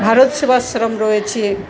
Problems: constant background noise, continuous background conversations